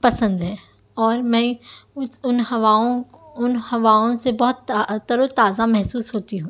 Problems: none marked